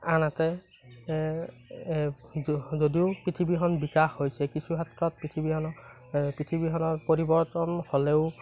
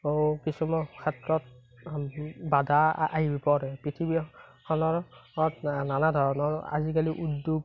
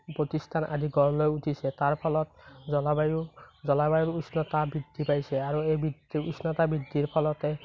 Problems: constant background noise